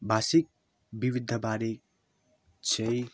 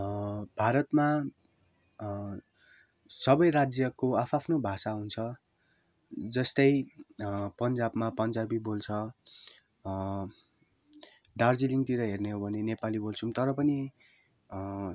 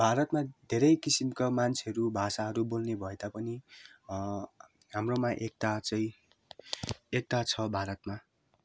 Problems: background sounds at intervals